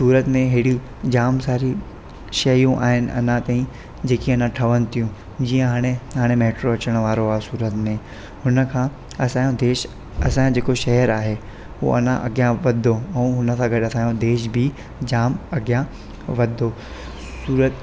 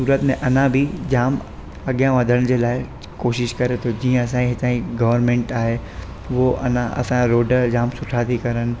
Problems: constant background noise